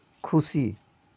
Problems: constant background noise